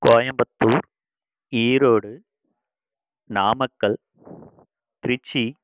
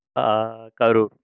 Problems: constant background noise